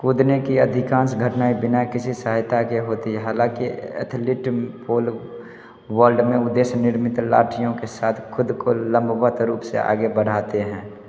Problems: constant background noise